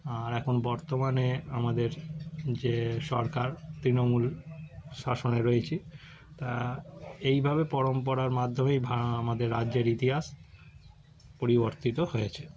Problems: background sounds at intervals